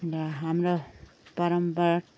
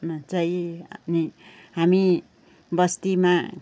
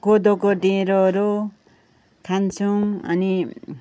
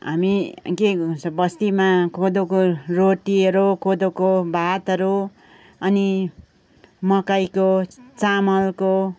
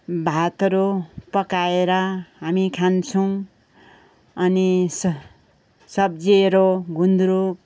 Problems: background sounds at intervals, background conversations at intervals